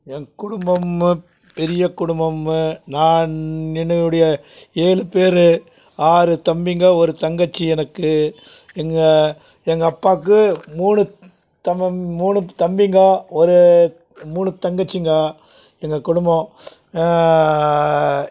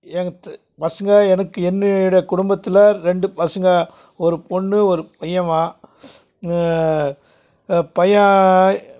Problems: constant background noise